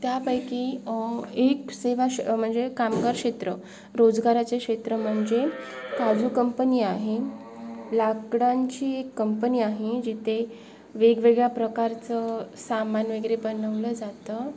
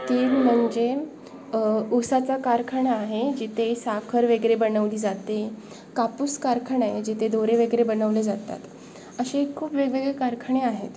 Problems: background sounds at intervals